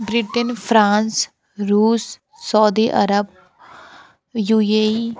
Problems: none marked